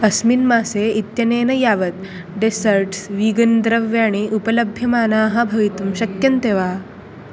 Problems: background sounds at intervals